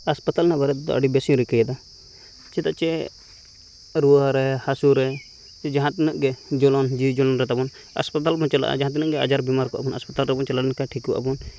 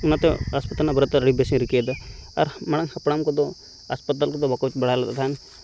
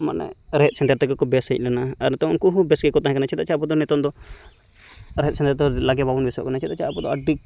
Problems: background sounds at intervals